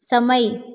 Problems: echo